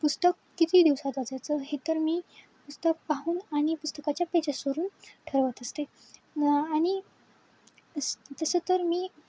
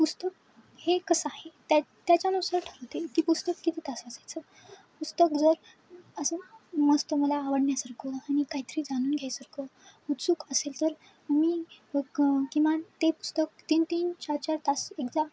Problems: constant background noise